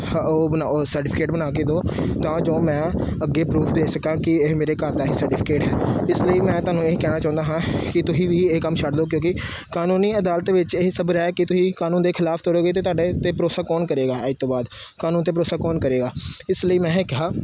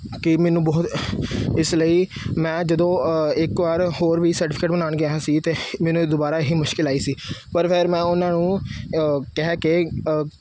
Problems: background sounds at intervals